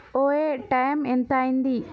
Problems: none marked